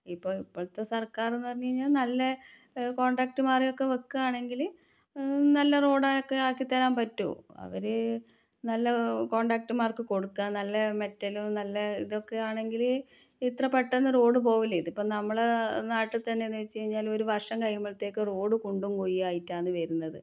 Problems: low volume